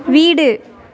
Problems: background conversations at intervals